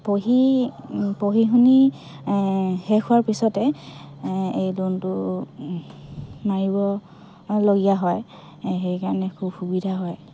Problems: background conversations at intervals